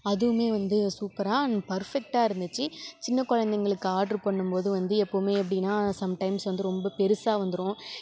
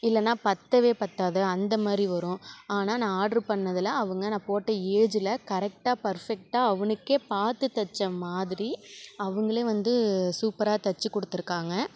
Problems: none marked